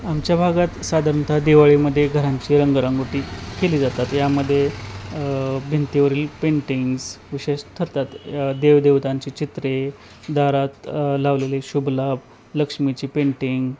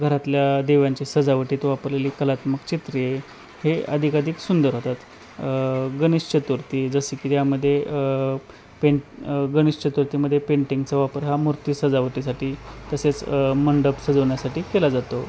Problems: constant background noise, background conversations at intervals